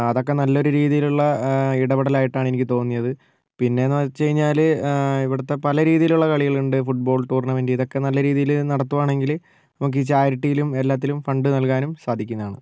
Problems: none marked